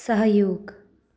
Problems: none marked